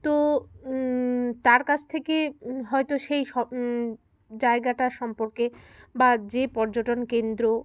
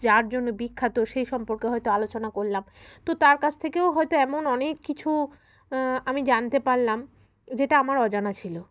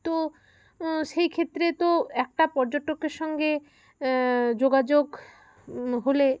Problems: constant background noise, continuous background conversations